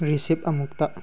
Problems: background sounds at intervals